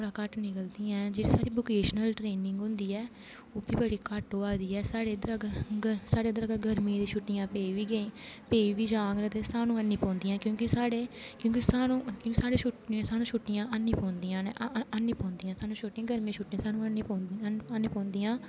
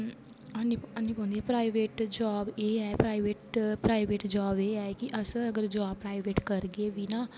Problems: constant background noise